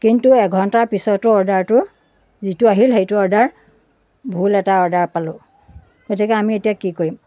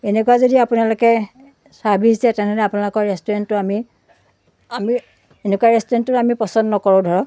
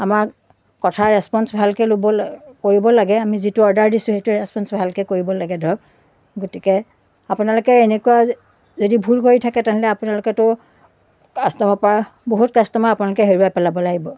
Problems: none marked